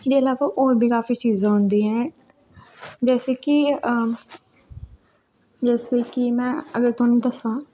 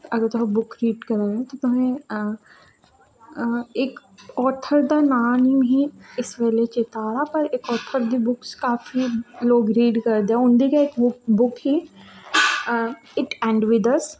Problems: low volume